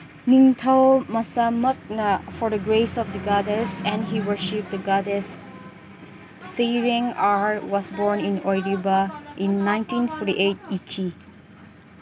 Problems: constant background noise, background conversations at intervals